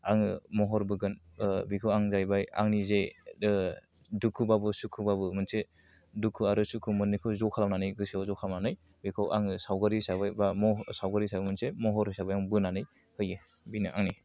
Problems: low volume